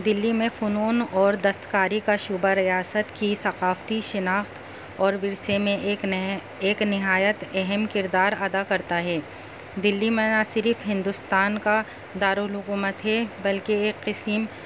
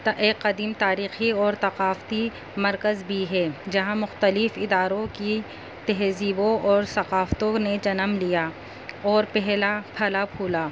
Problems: constant background noise